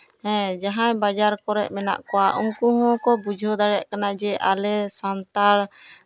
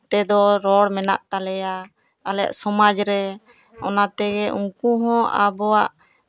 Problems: background conversations at intervals